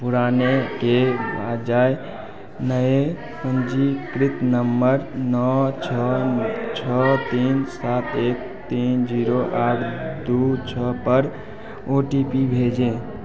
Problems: constant background noise, continuous background conversations